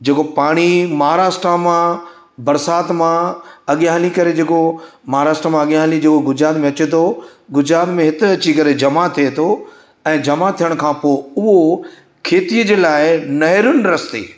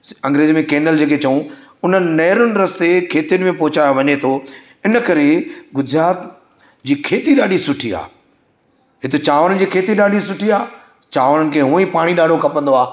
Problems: background sounds at intervals, echo